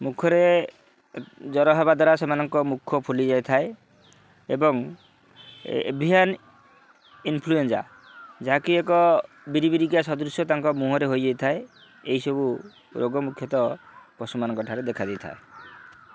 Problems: none marked